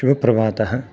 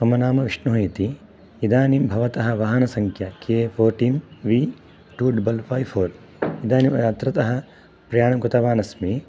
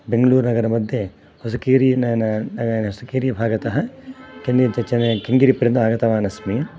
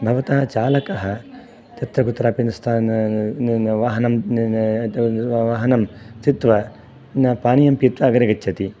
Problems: background sounds at intervals